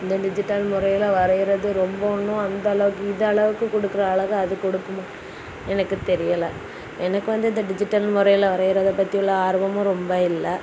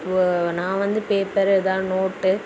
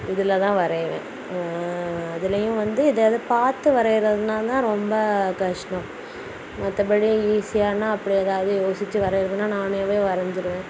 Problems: constant background noise